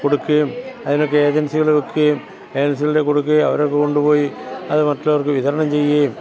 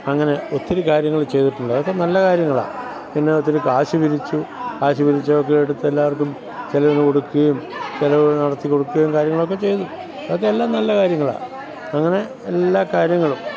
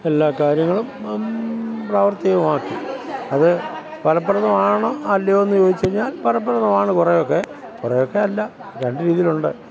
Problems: constant background noise, background conversations at intervals